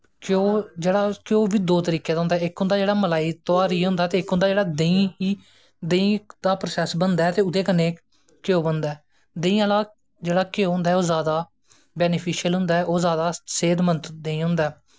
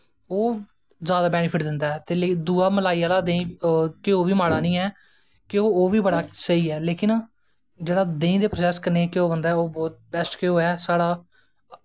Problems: none marked